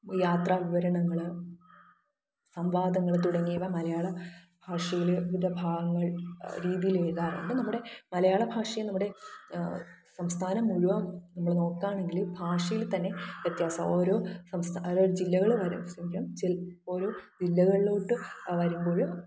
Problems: low volume